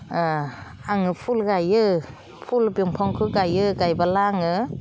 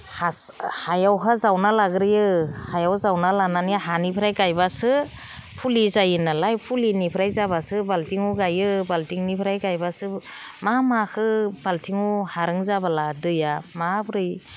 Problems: background sounds at intervals